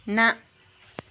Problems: none marked